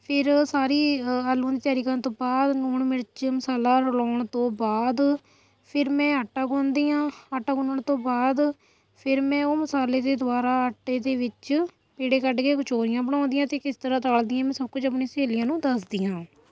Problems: none marked